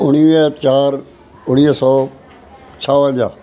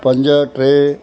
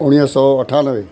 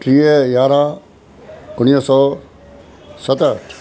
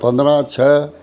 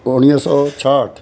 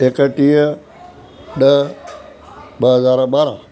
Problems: constant background noise